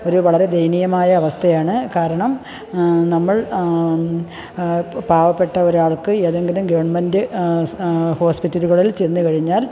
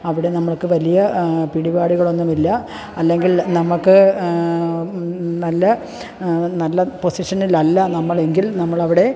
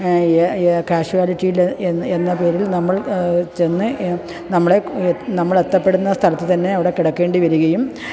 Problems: none marked